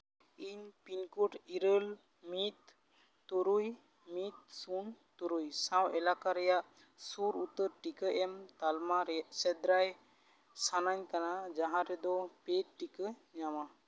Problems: constant background noise